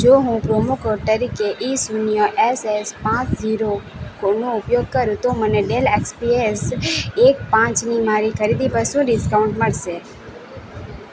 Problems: none marked